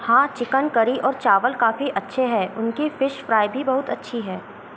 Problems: none marked